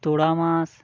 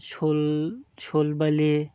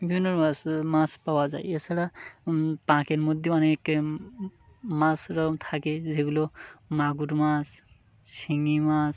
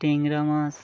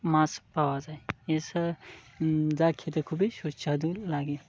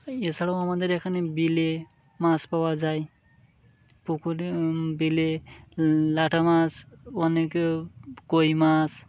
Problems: constant background noise